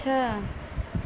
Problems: constant background noise